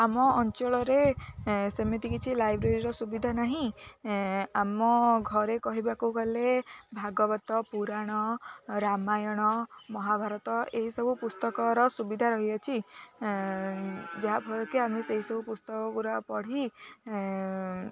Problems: constant background noise, continuous background conversations